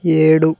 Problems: none marked